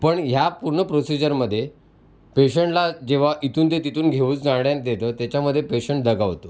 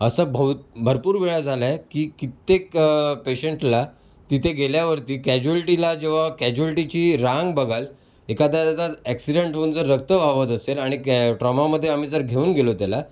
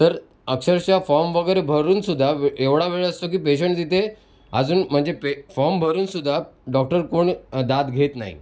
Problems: background sounds at intervals